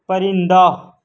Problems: none marked